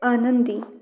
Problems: background sounds at intervals, background conversations at intervals